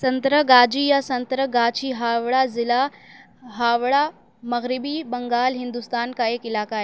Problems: none marked